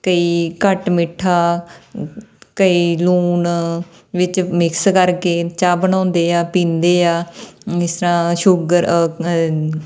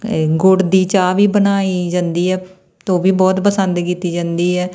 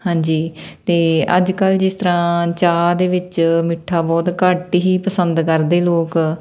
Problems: none marked